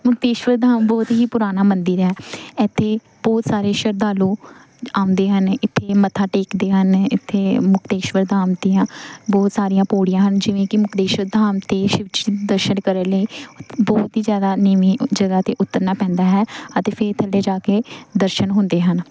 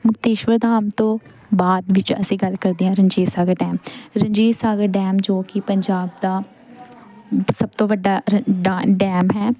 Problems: constant background noise